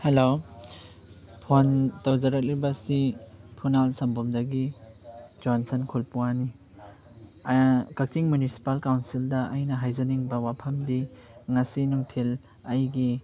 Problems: background sounds at intervals